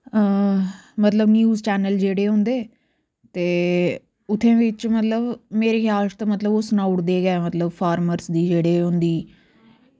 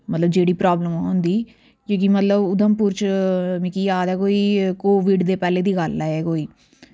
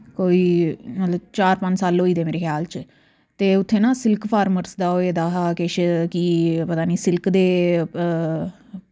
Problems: none marked